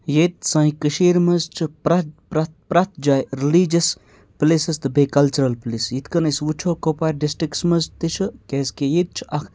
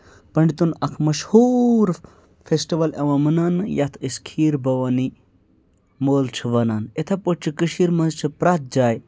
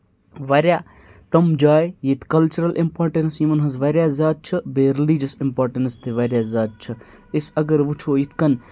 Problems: none marked